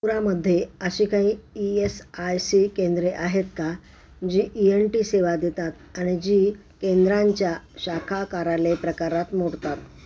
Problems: constant background noise, background conversations at intervals